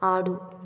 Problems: none marked